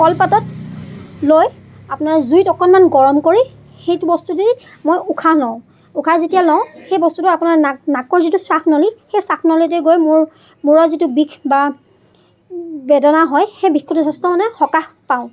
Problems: constant background noise, background conversations at intervals